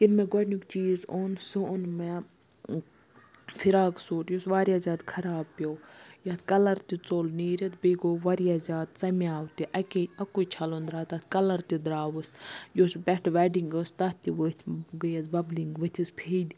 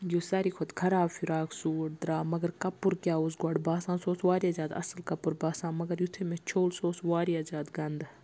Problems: none marked